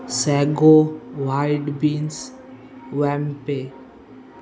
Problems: constant background noise, background conversations at intervals